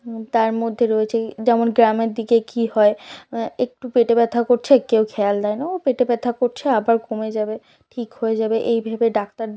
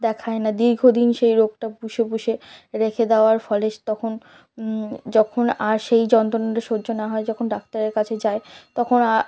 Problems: background sounds at intervals, background conversations at intervals